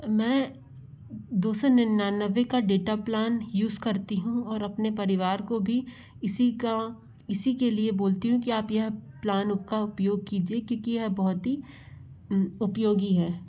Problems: low volume